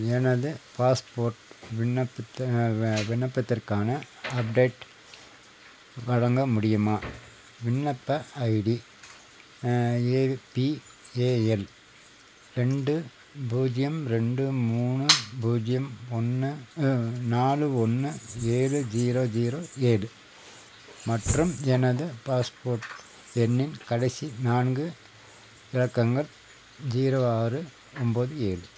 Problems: constant background noise, background conversations at intervals